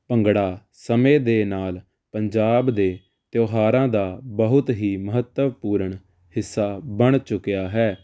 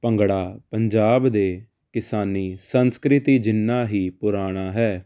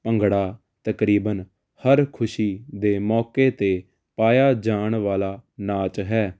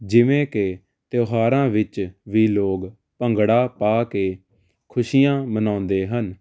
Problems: constant background noise